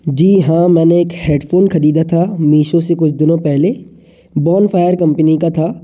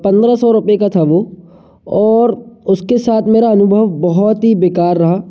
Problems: background sounds at intervals, echo